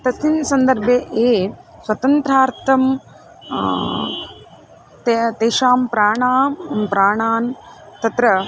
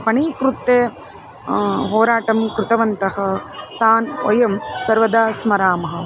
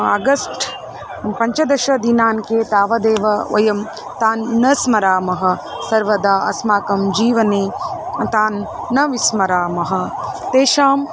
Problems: constant background noise, background conversations at intervals